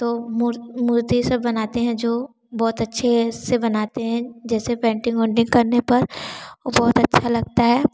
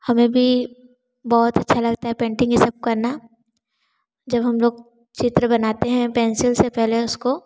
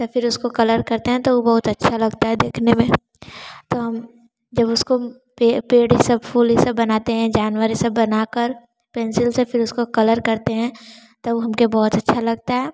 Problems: background sounds at intervals